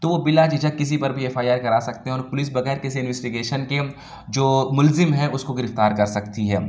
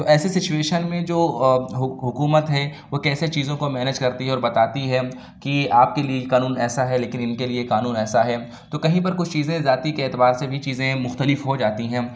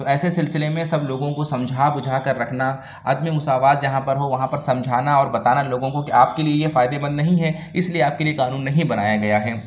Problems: none marked